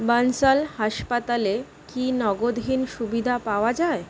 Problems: constant background noise